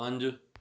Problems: none marked